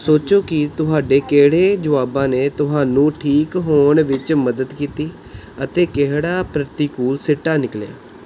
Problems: background sounds at intervals